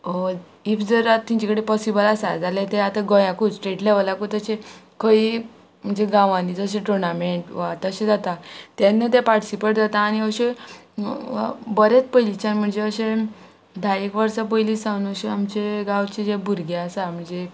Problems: constant background noise